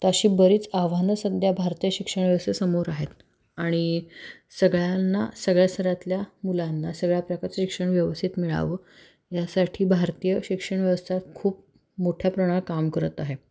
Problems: constant background noise